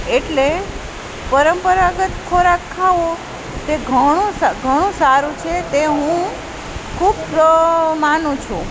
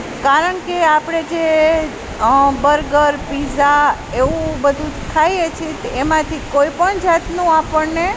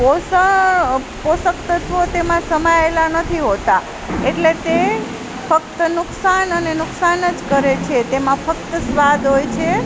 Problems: constant background noise